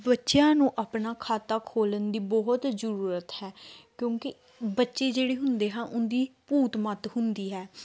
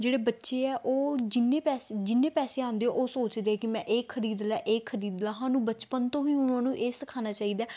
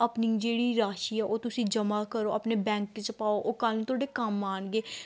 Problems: none marked